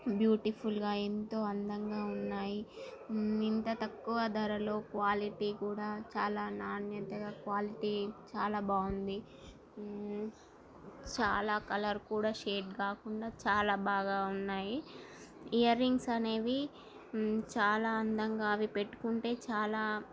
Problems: constant background noise, continuous background conversations